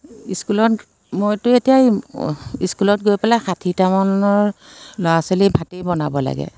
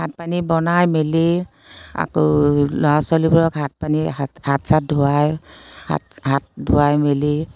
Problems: constant background noise